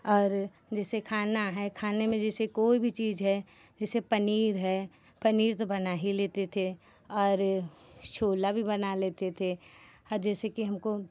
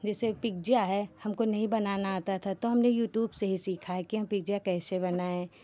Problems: none marked